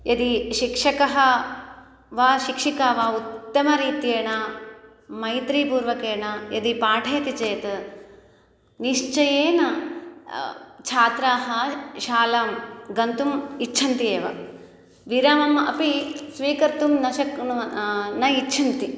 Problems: none marked